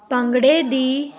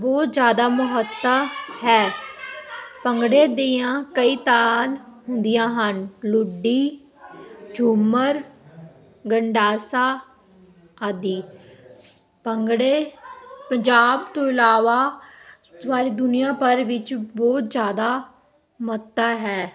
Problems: continuous background conversations